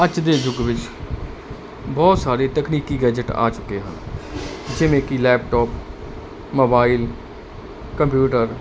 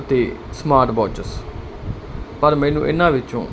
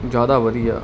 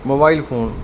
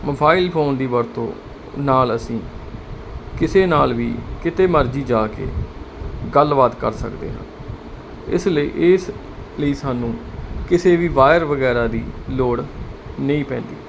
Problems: constant background noise